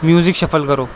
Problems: constant background noise